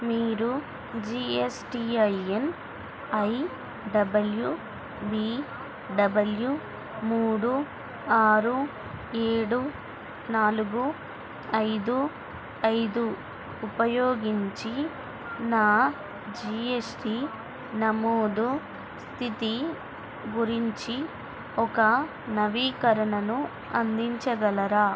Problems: constant background noise